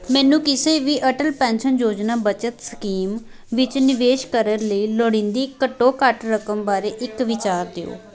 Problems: background conversations at intervals